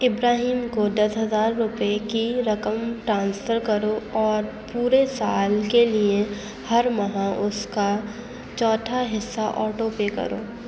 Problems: constant background noise